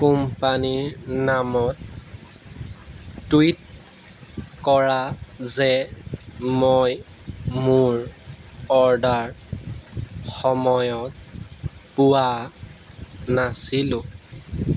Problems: background sounds at intervals